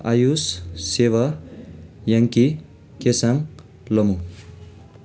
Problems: background conversations at intervals